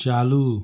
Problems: constant background noise